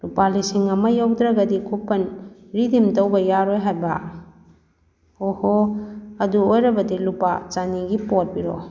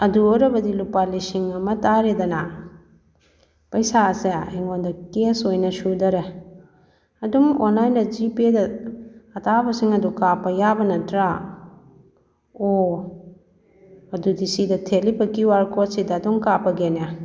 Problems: background conversations at intervals